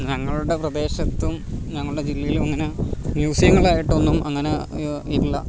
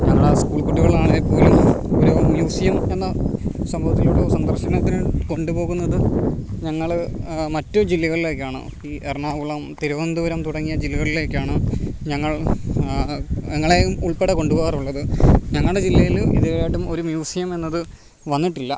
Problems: background sounds at intervals